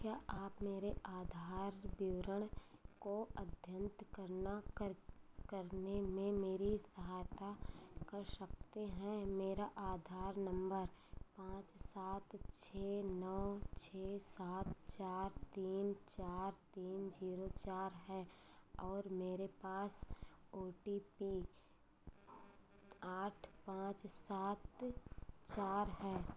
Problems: none marked